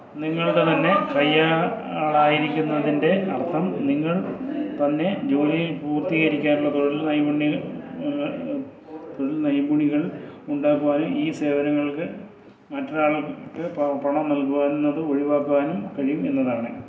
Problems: continuous background conversations, low volume